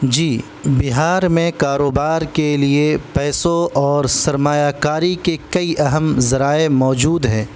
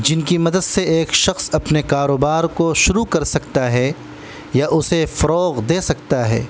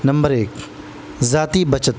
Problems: constant background noise